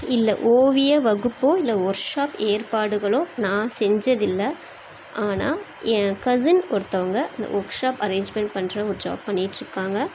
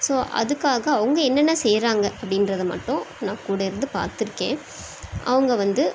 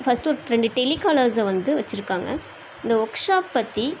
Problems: constant background noise